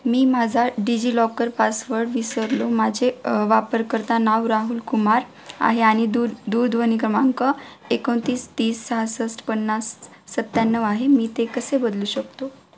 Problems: constant background noise, background conversations at intervals